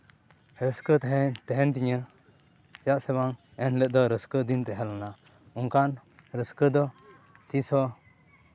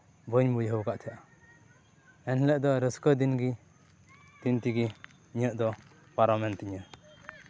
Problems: none marked